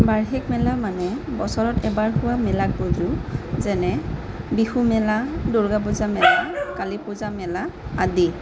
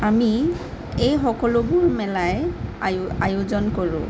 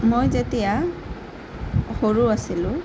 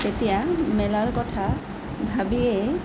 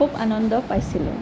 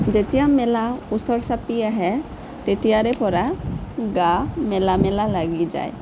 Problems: constant background noise